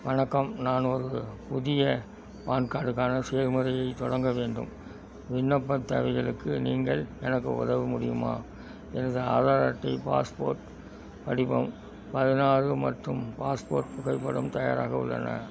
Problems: background sounds at intervals